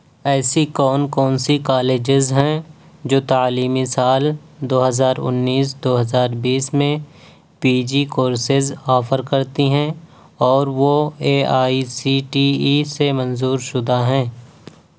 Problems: none marked